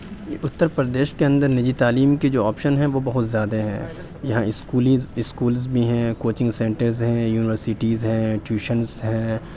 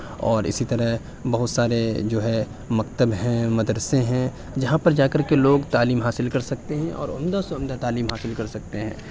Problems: background conversations at intervals